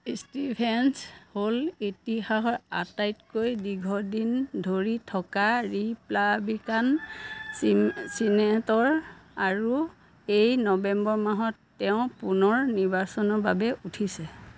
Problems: none marked